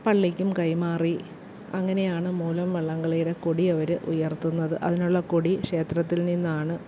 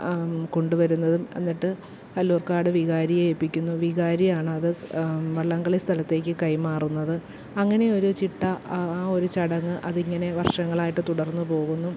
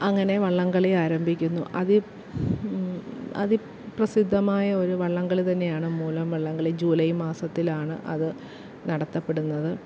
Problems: low volume